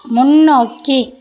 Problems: continuous background conversations